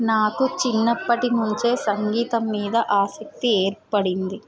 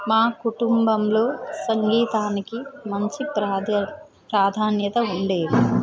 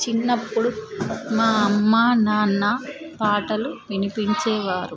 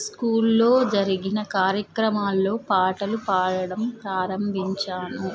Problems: continuous background conversations